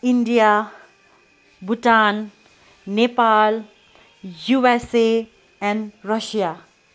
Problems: background sounds at intervals